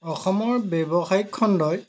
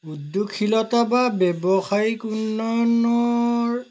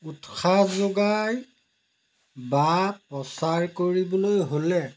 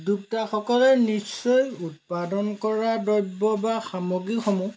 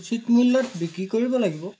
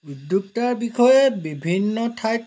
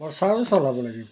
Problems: none marked